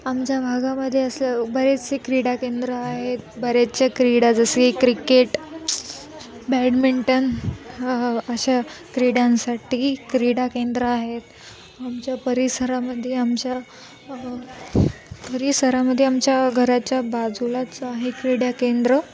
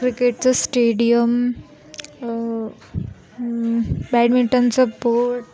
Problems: constant background noise, background conversations at intervals